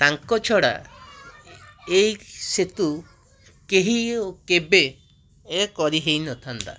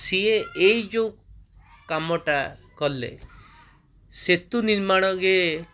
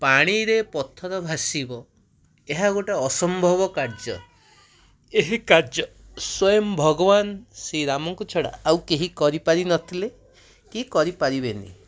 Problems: constant background noise, continuous background conversations